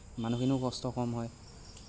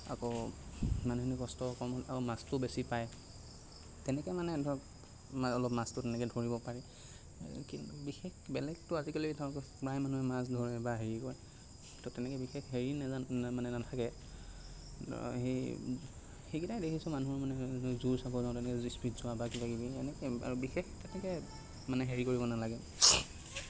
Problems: constant background noise